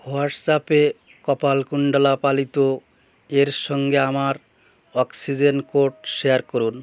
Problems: none marked